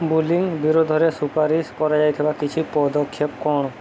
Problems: constant background noise